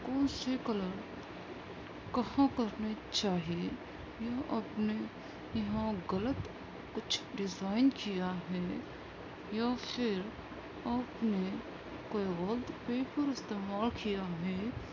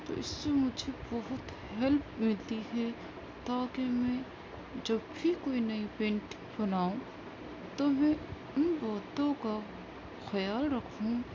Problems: constant background noise